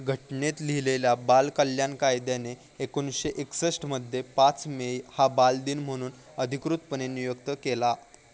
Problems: none marked